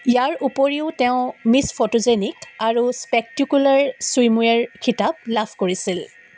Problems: background sounds at intervals